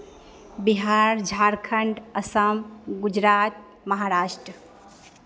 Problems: none marked